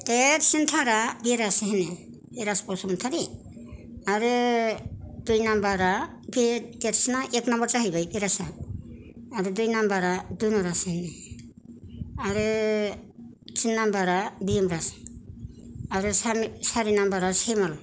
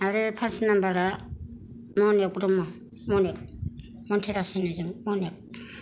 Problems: none marked